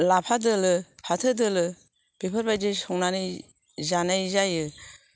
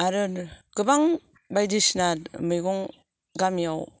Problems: background sounds at intervals